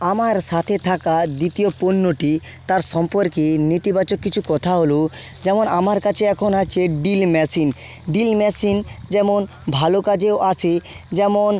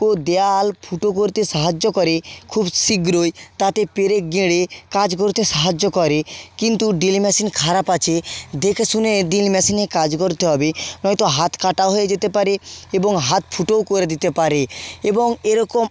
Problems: constant background noise